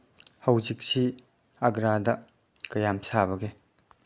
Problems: none marked